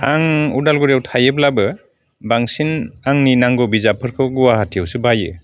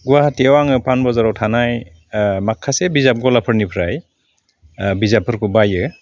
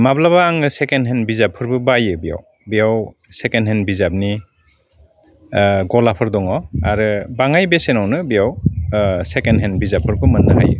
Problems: constant background noise